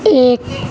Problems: constant background noise